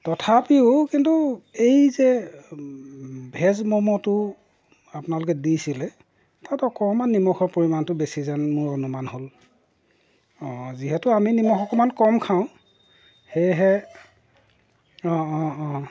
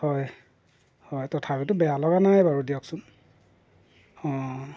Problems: none marked